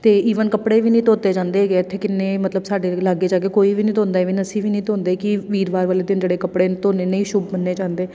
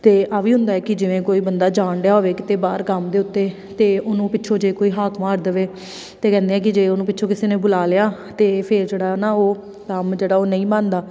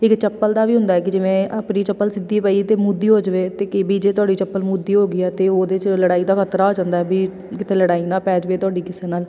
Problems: background sounds at intervals